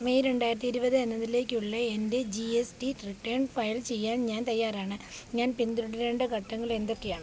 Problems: constant background noise